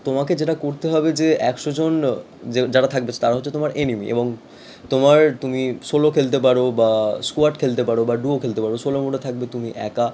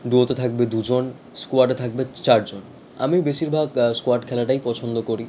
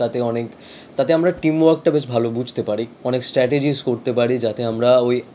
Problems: background sounds at intervals